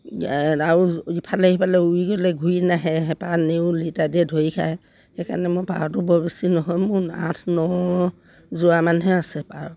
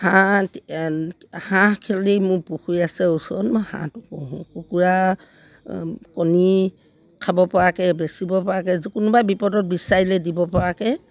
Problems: none marked